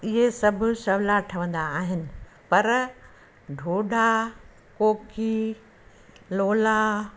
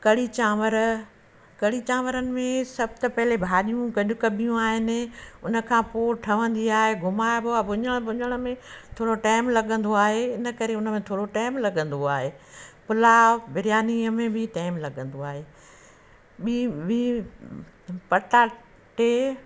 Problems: constant background noise